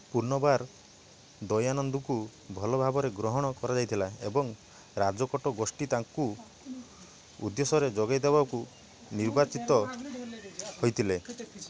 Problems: continuous background conversations